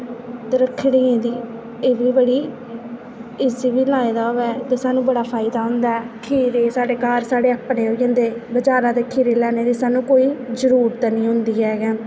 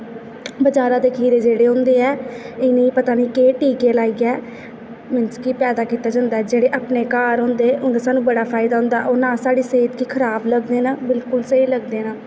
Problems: constant background noise